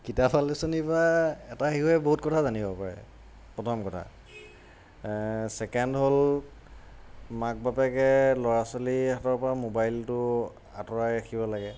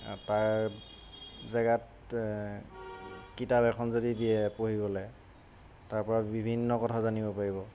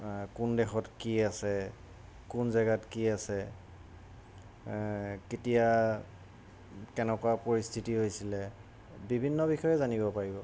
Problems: constant background noise